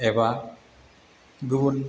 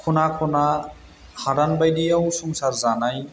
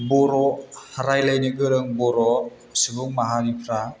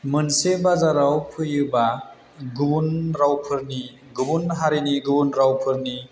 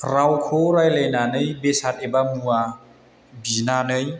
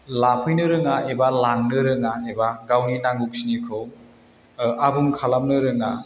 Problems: constant background noise